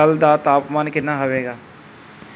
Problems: none marked